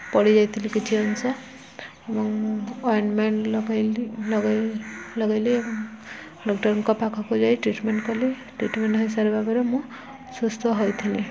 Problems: constant background noise, continuous background conversations